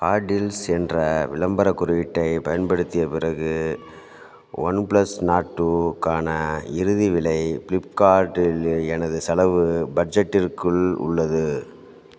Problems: background sounds at intervals